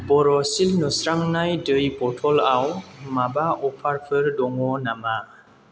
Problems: constant background noise